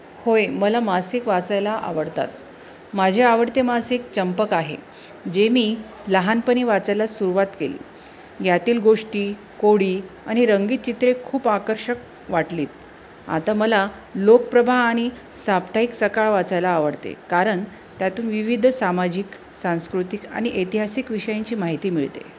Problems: constant background noise